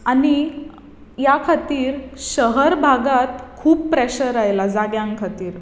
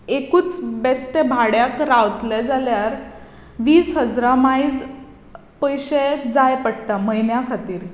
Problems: constant background noise